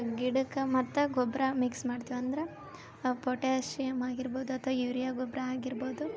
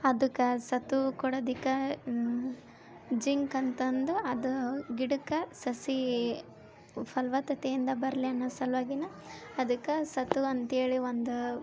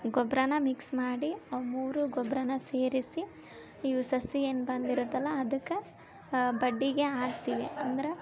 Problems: background sounds at intervals